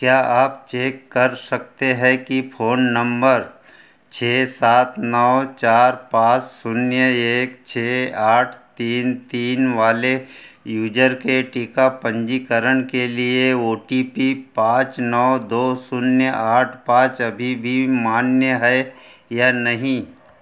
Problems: none marked